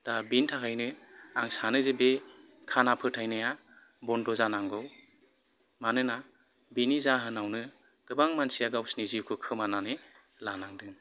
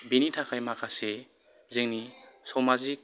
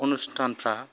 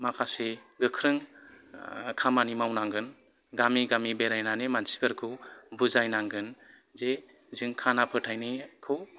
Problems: background sounds at intervals, background conversations at intervals